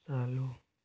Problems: constant background noise, low volume